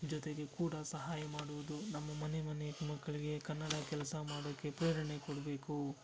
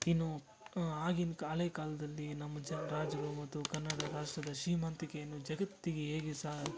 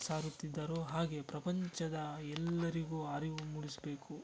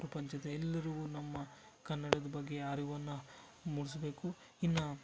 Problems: constant background noise